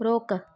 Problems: none marked